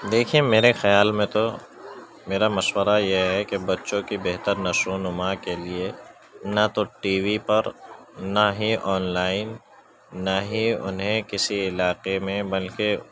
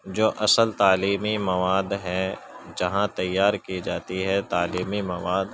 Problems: constant background noise